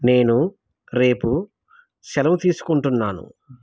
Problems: none marked